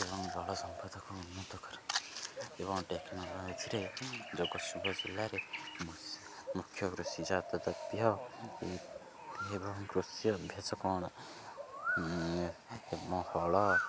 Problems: constant background noise